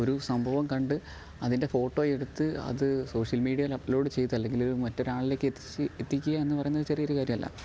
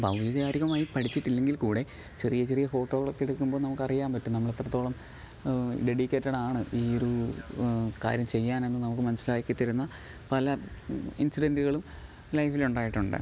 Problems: none marked